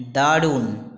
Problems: constant background noise